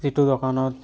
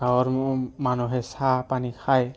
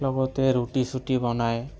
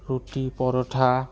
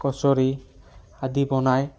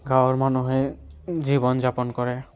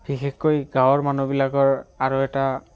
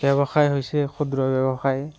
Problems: background sounds at intervals